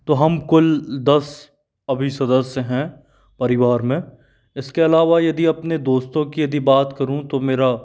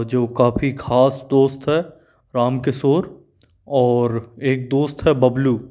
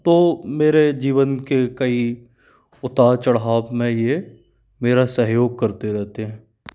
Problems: none marked